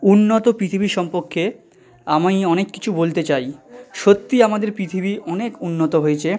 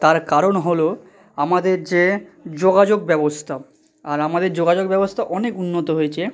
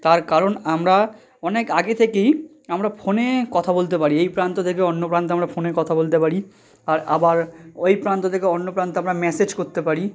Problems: none marked